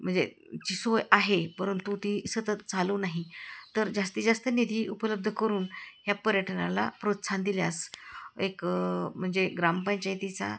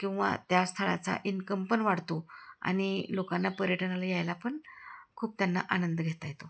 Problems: none marked